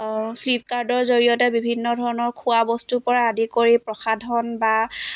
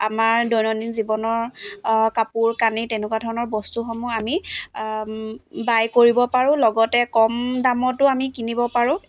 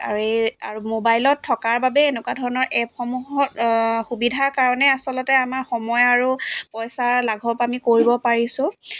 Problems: none marked